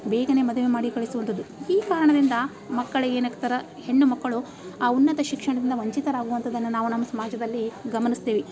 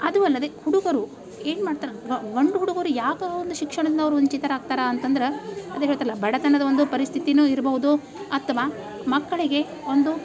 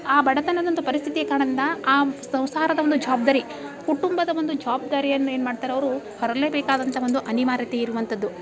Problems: background sounds at intervals